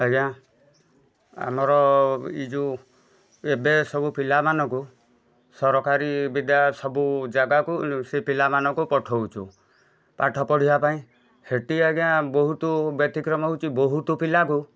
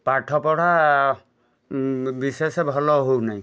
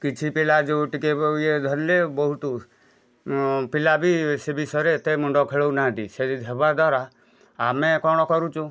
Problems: background sounds at intervals, background conversations at intervals